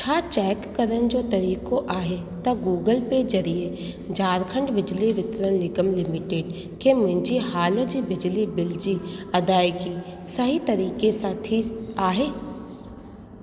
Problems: constant background noise, echo